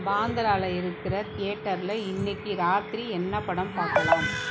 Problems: continuous background conversations